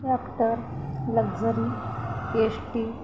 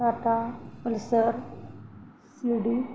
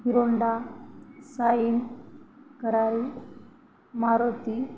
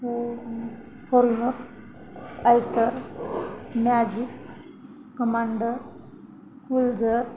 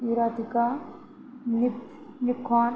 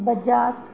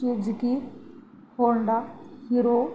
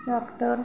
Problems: constant background noise, continuous background conversations